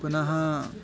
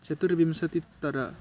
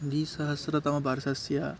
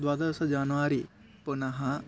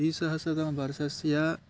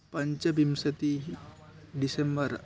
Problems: background sounds at intervals